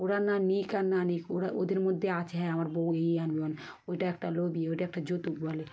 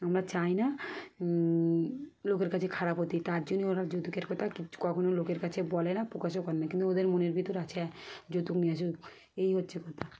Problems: none marked